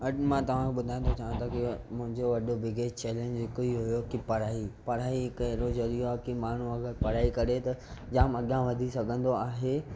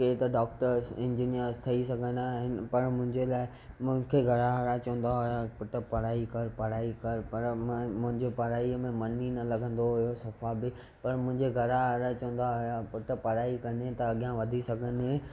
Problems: none marked